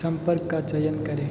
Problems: constant background noise